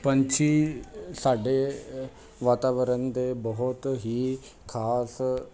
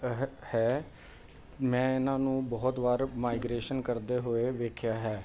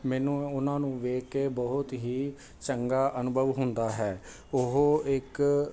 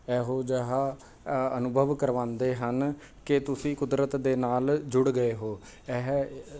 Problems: background conversations at intervals